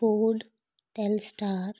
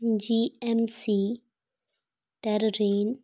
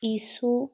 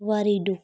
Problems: background sounds at intervals